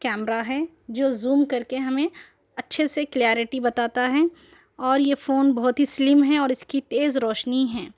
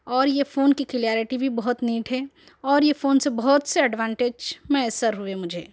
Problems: none marked